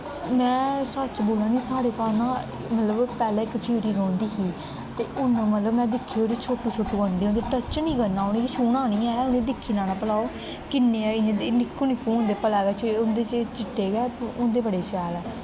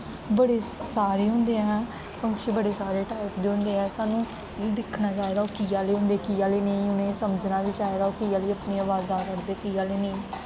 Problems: constant background noise